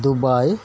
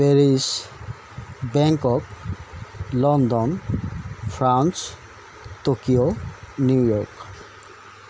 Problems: constant background noise